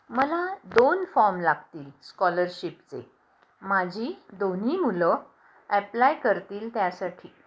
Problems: background sounds at intervals